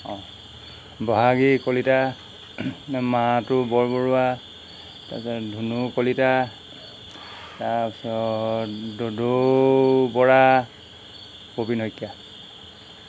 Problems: none marked